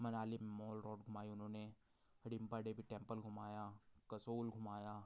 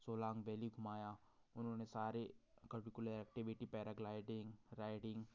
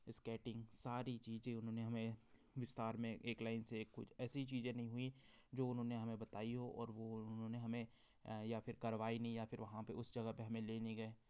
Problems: none marked